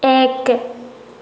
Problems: constant background noise